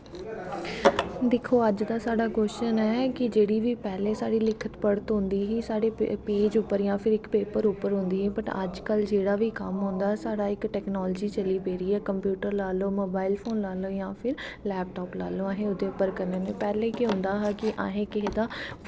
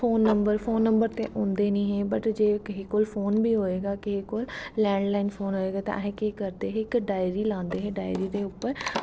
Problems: none marked